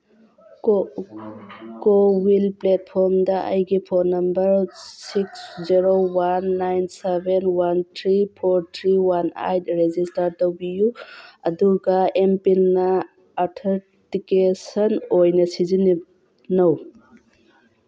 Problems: background sounds at intervals